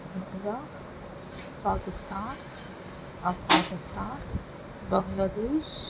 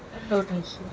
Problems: constant background noise